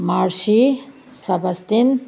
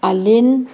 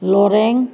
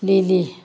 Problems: background sounds at intervals